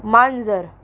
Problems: none marked